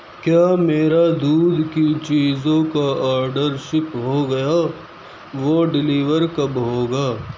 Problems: none marked